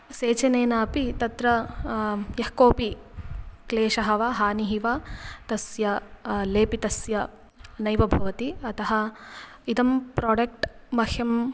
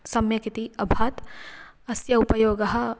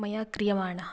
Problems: background sounds at intervals